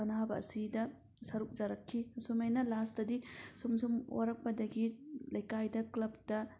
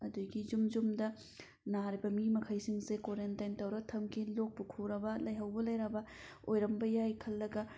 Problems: none marked